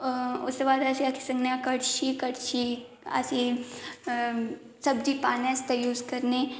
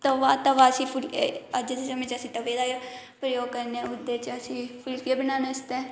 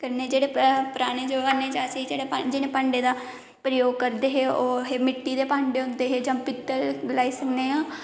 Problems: constant background noise, echo